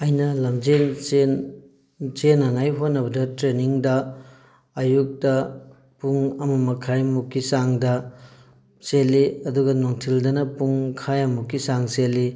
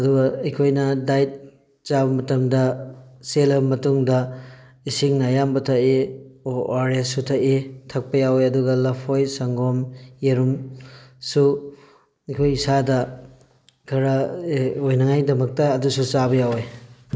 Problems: none marked